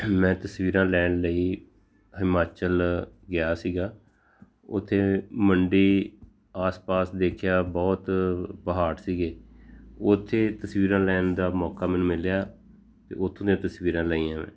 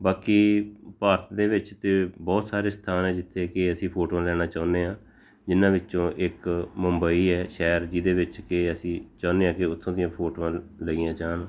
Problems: constant background noise